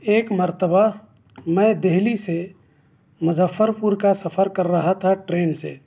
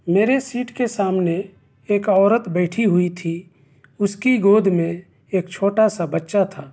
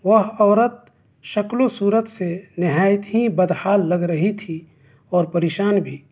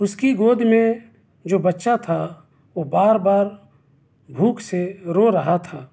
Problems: background sounds at intervals